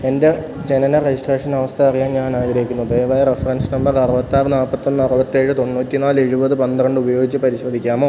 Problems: none marked